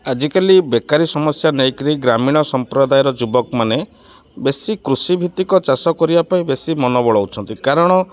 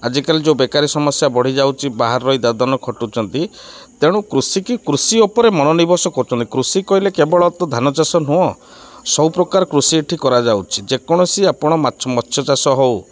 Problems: none marked